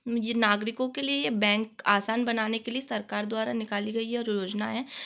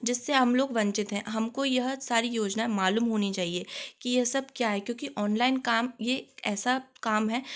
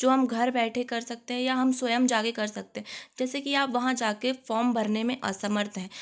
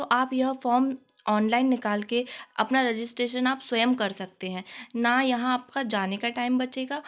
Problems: constant background noise